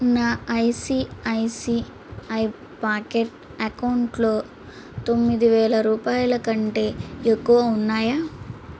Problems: constant background noise